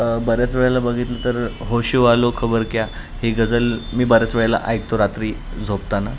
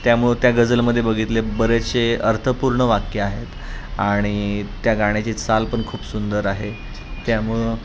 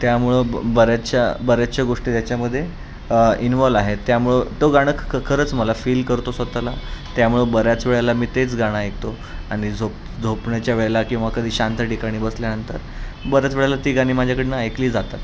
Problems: constant background noise